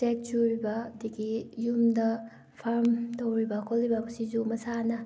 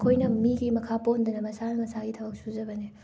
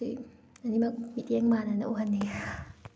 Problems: background sounds at intervals